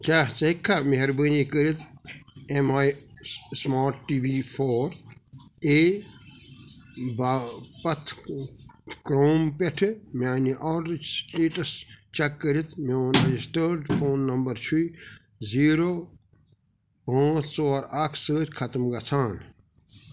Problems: background sounds at intervals